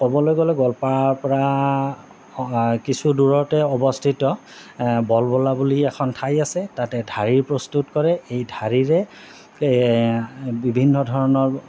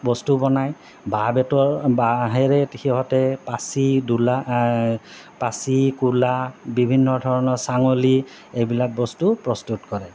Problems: none marked